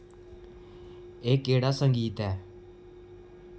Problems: echo